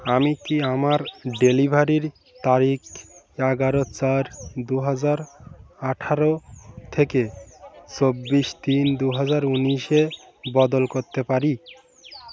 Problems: none marked